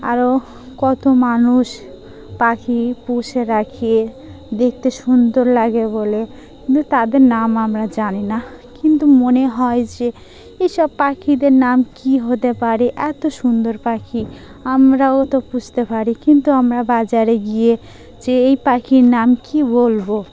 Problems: constant background noise